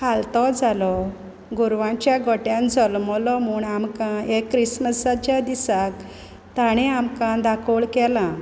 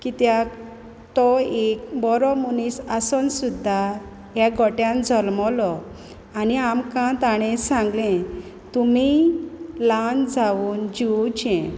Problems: none marked